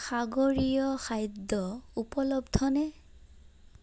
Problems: none marked